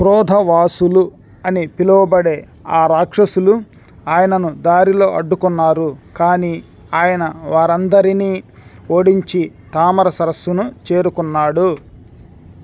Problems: none marked